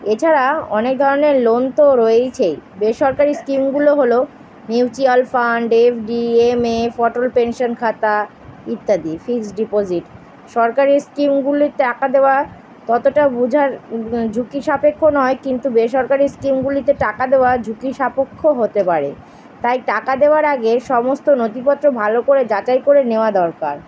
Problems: constant background noise